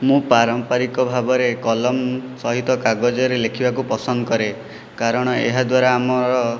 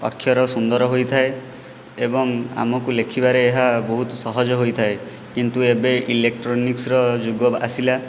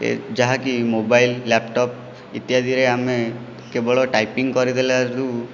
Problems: none marked